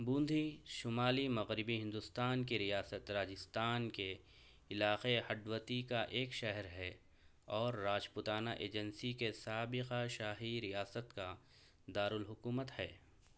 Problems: low volume